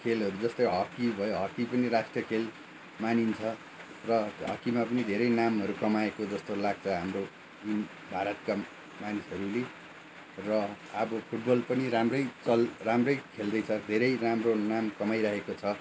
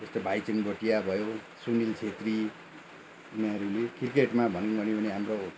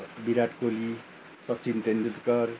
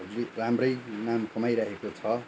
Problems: background sounds at intervals